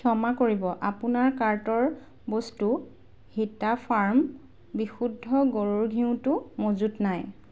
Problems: none marked